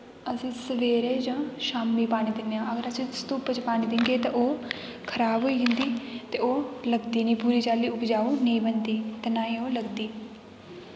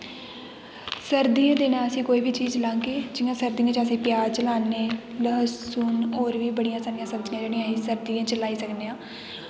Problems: constant background noise, background conversations at intervals, echo